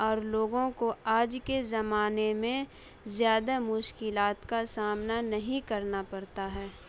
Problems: none marked